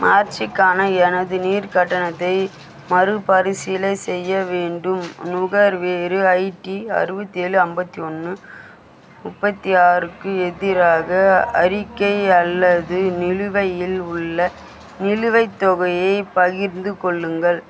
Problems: constant background noise, background conversations at intervals